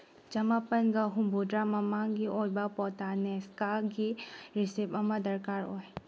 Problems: low volume